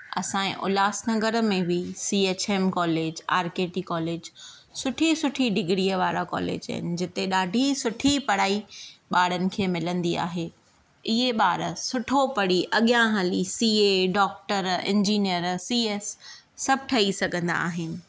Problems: none marked